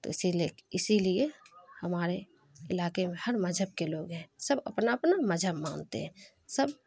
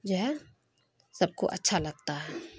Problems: constant background noise